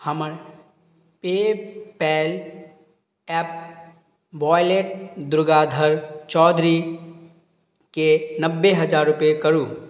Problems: none marked